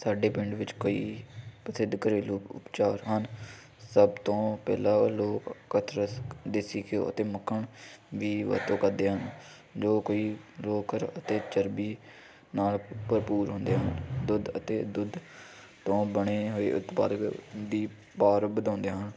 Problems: none marked